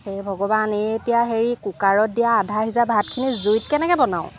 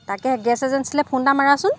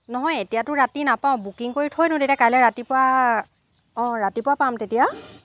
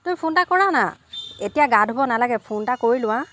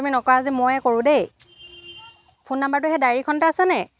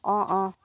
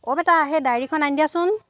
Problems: constant background noise